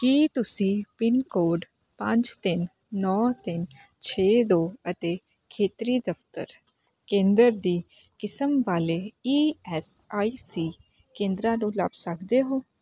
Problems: constant background noise